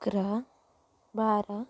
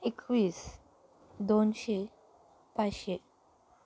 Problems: none marked